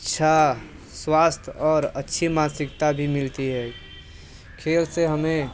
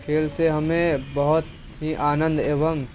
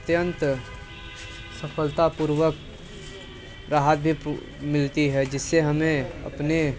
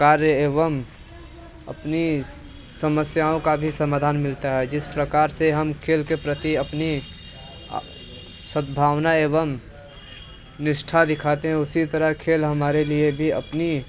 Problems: constant background noise, background conversations at intervals